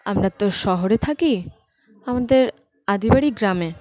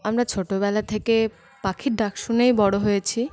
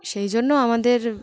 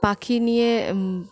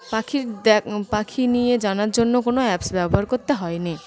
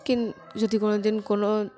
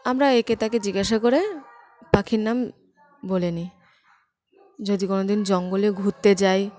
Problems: constant background noise, continuous background conversations